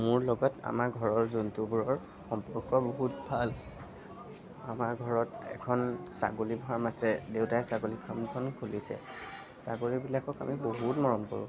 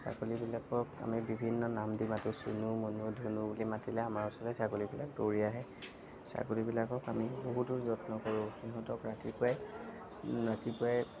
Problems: none marked